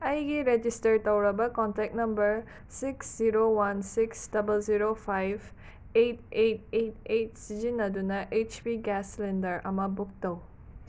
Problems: none marked